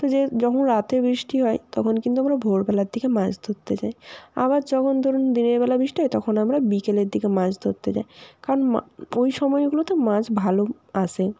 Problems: constant background noise